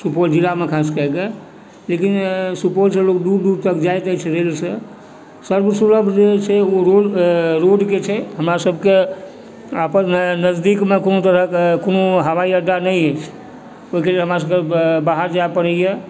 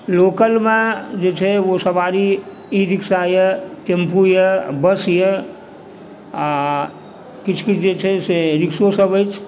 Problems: background sounds at intervals, background conversations at intervals